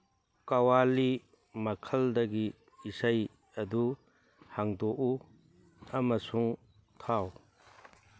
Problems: background sounds at intervals